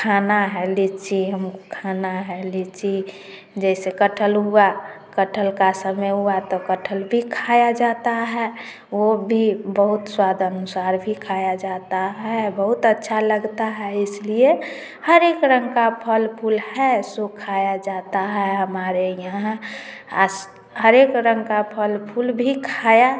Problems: background sounds at intervals, continuous background conversations, echo